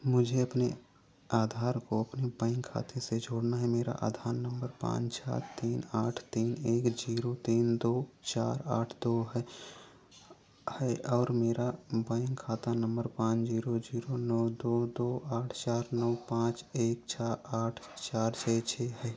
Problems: none marked